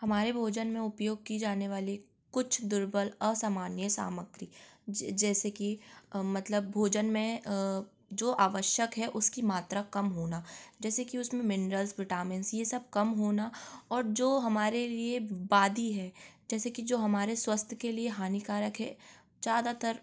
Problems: constant background noise